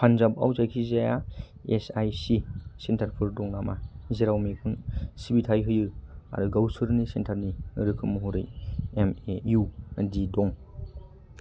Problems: low volume